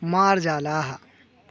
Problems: constant background noise